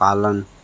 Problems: constant background noise